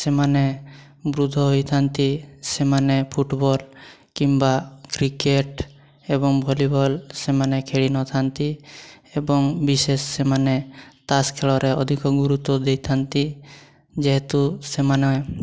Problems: constant background noise